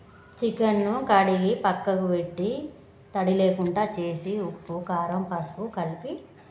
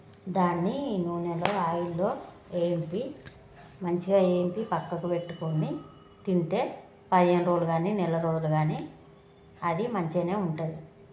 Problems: constant background noise, background conversations at intervals